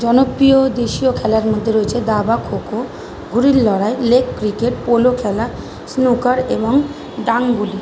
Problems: constant background noise